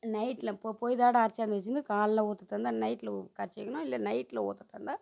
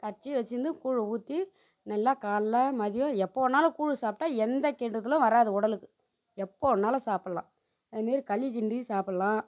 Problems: constant background noise, low volume